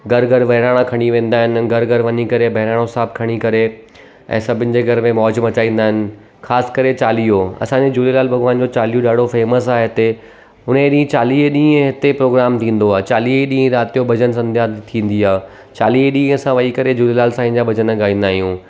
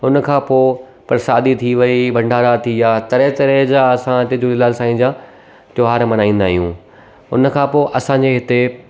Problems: constant background noise